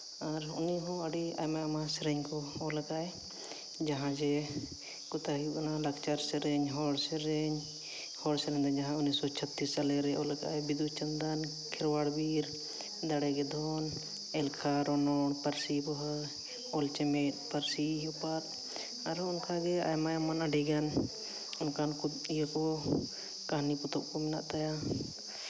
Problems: background sounds at intervals, background conversations at intervals